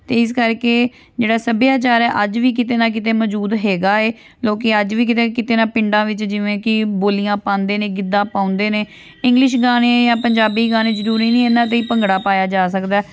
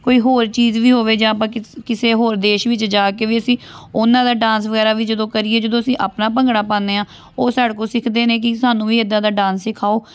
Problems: background sounds at intervals